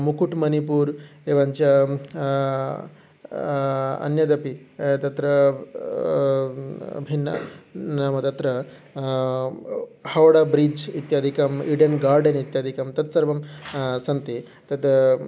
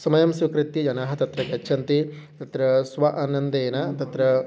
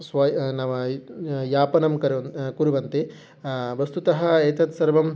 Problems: background sounds at intervals